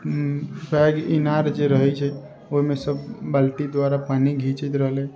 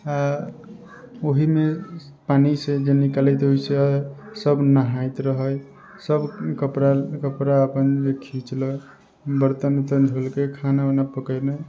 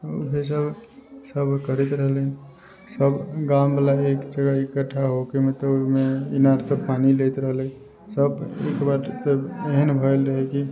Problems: background sounds at intervals